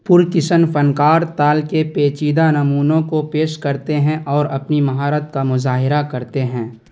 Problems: constant background noise